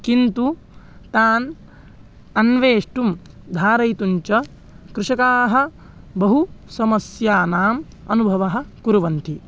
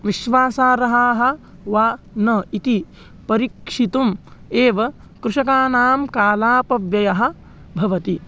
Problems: background sounds at intervals